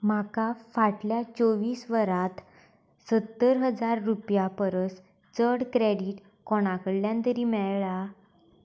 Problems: none marked